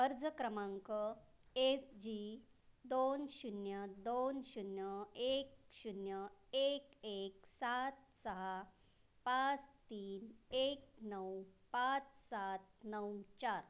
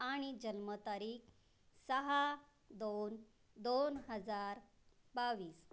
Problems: none marked